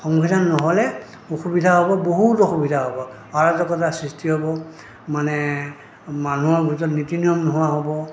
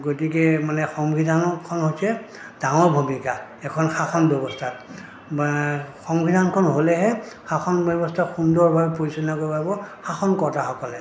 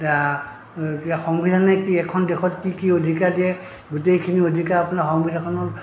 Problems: background sounds at intervals